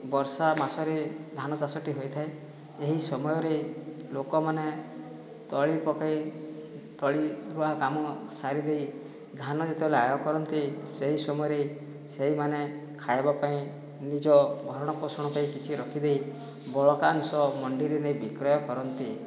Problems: background sounds at intervals, background conversations at intervals